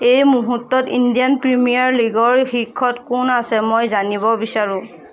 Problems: none marked